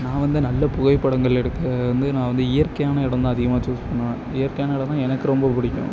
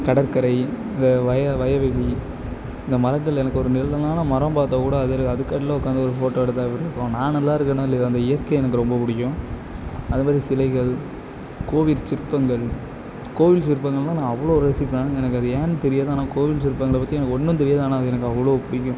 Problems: none marked